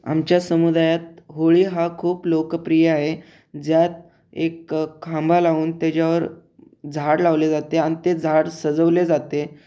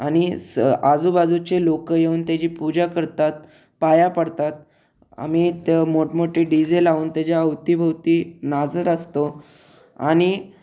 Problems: none marked